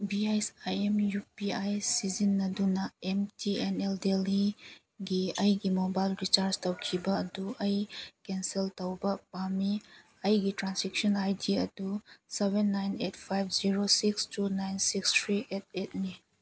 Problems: none marked